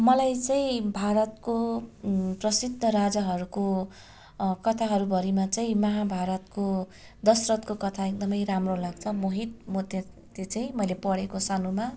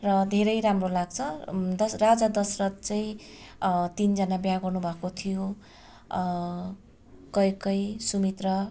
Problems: constant background noise